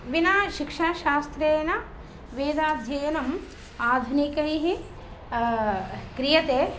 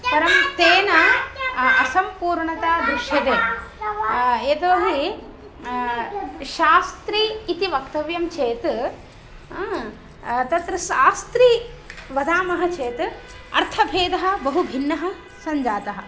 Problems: background sounds at intervals